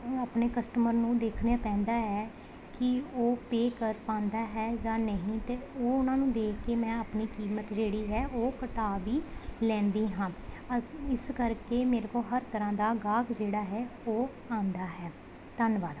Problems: none marked